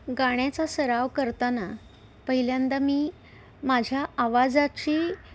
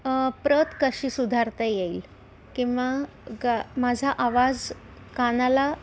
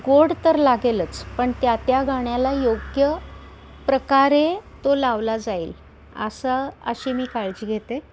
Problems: constant background noise, continuous background conversations